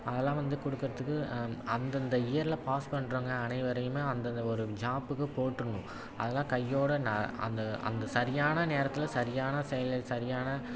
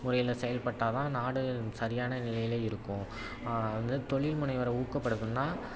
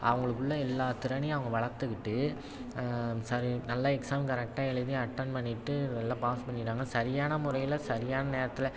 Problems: constant background noise, background conversations at intervals